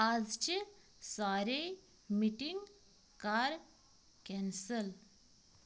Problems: constant background noise